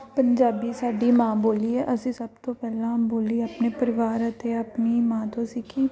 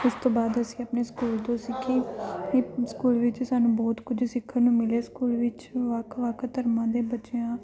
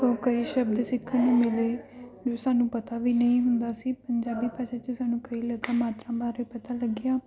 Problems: background sounds at intervals